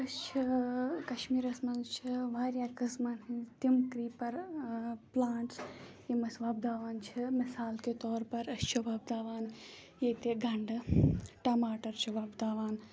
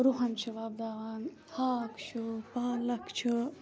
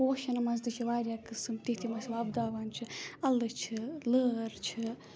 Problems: background sounds at intervals, background conversations at intervals